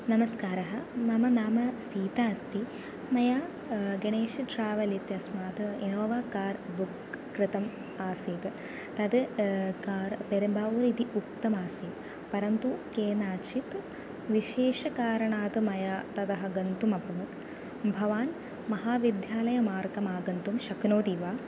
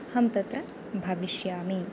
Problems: constant background noise